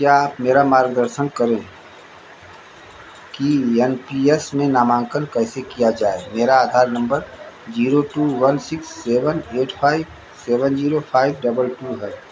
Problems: constant background noise